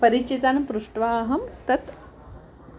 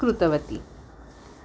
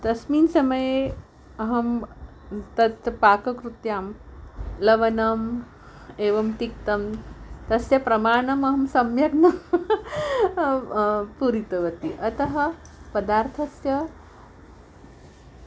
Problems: constant background noise